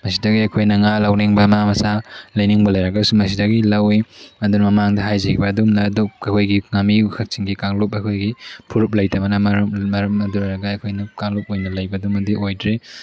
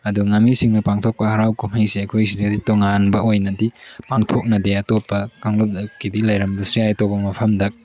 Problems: background sounds at intervals, background conversations at intervals